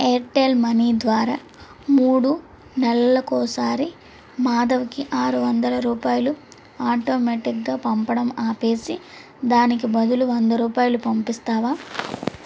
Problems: constant background noise